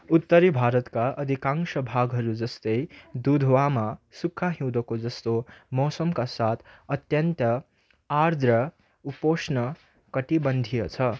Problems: none marked